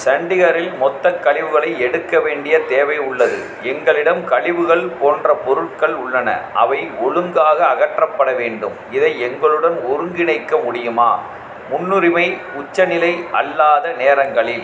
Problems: constant background noise